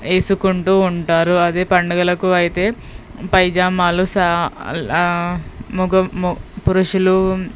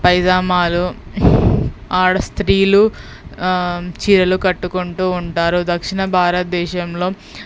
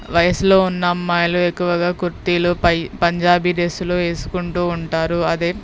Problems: background sounds at intervals